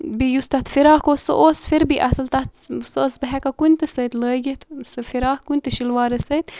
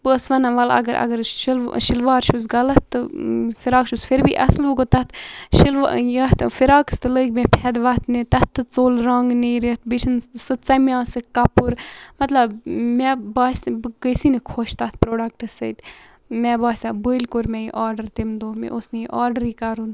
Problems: constant background noise